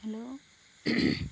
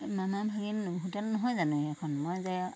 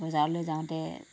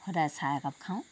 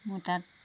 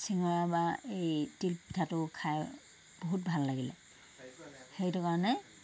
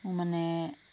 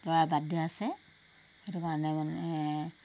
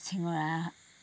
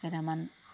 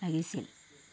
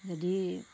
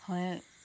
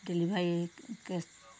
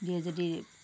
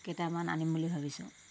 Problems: none marked